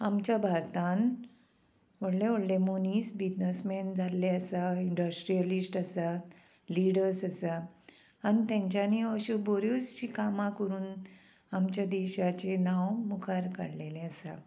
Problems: constant background noise